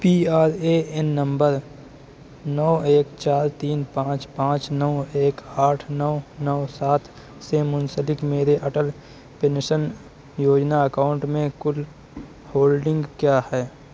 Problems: none marked